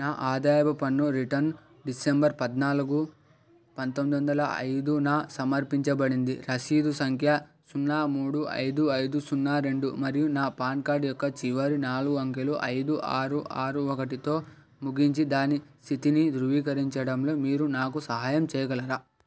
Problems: background sounds at intervals